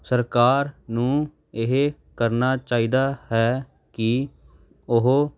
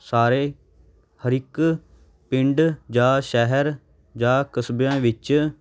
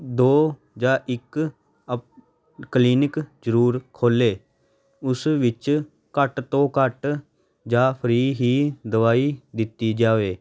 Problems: none marked